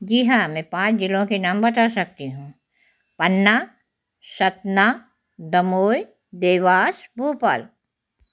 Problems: none marked